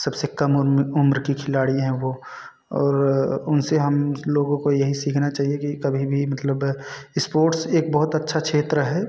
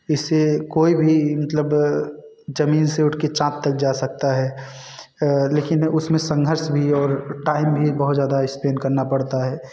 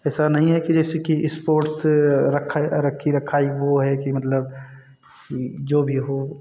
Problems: constant background noise